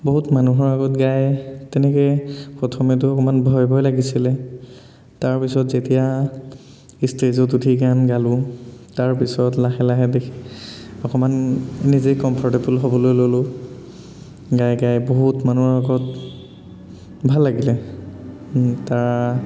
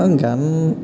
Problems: constant background noise, echo